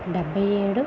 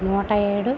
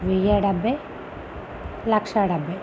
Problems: constant background noise